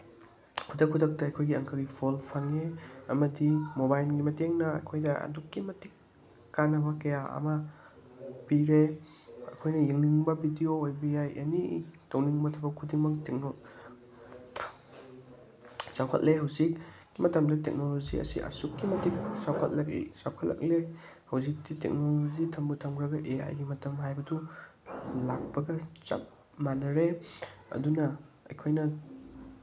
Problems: none marked